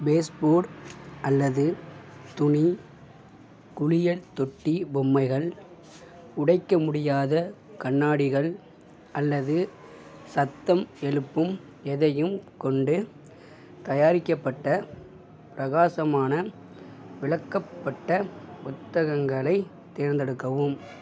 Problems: none marked